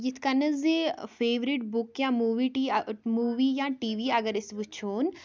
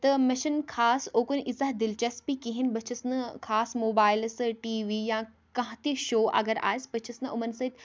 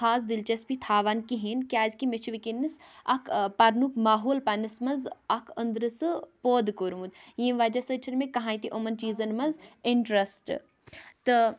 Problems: none marked